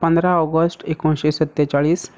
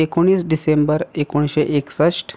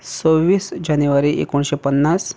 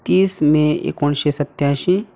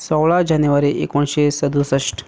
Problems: none marked